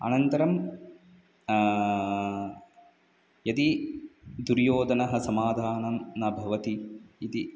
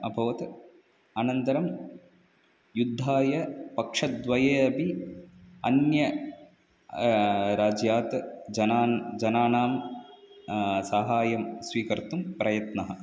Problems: none marked